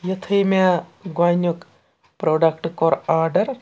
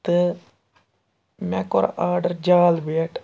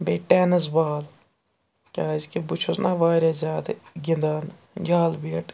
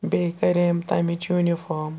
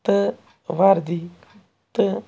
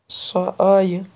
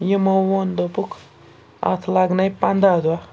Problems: constant background noise